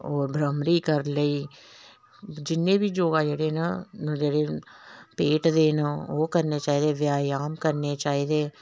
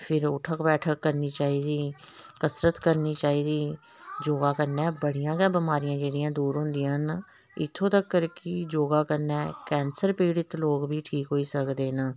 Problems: none marked